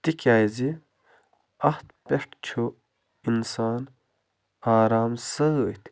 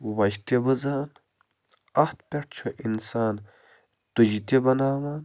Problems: constant background noise